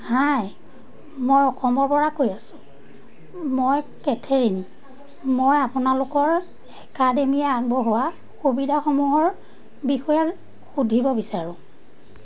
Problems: none marked